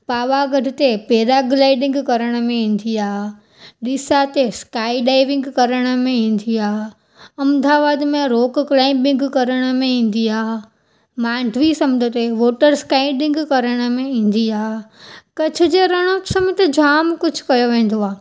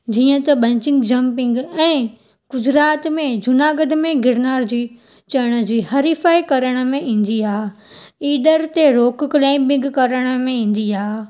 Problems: none marked